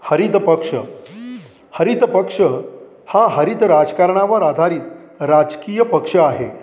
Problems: background sounds at intervals